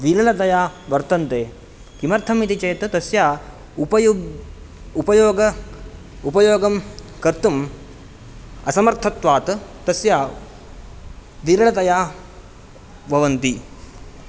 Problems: none marked